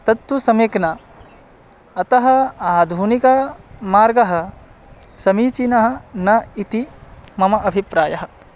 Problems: constant background noise